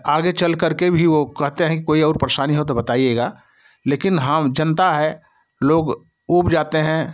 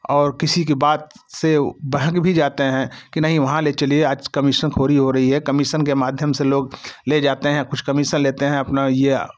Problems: none marked